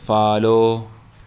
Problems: constant background noise